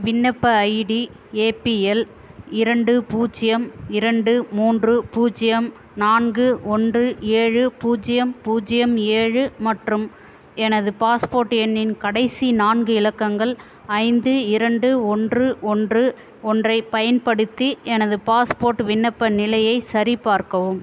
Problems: constant background noise